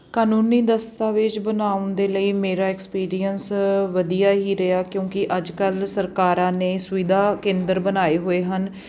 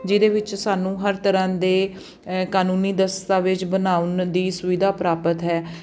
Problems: background sounds at intervals